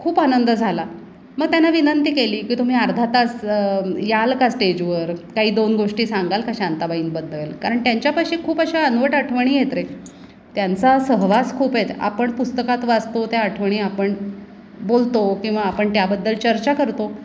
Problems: constant background noise, background conversations at intervals